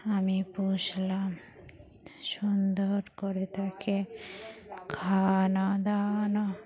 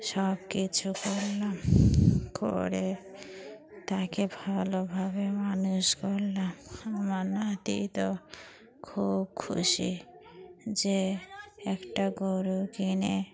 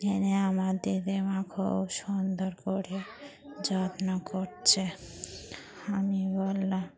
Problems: constant background noise, continuous background conversations